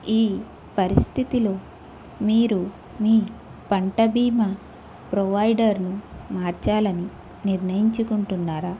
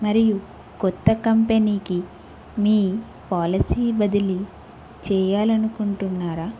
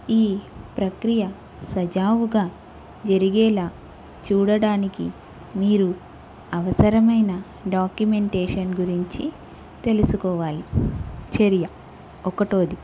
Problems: constant background noise